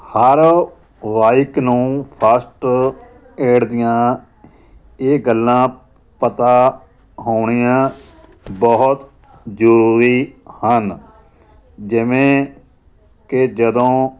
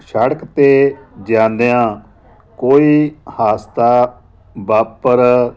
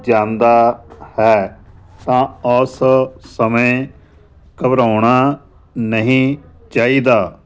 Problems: none marked